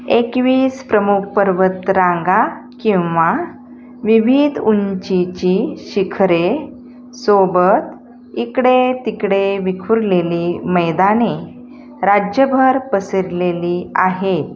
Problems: none marked